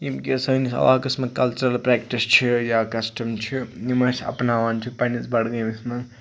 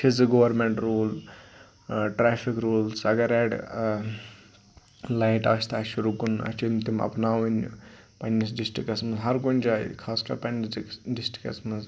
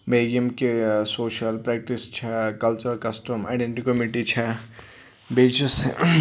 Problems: constant background noise